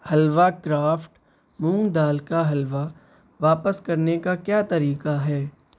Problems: none marked